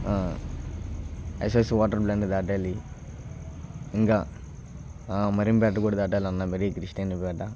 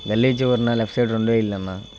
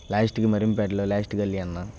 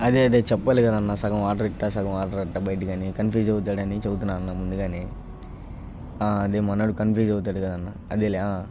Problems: constant background noise